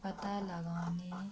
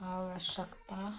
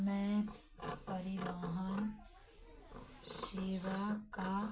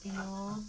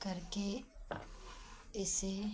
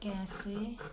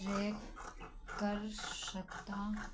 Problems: background sounds at intervals